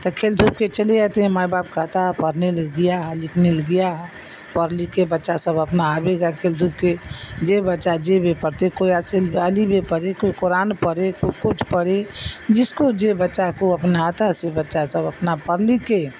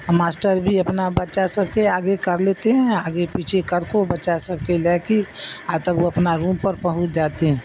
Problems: constant background noise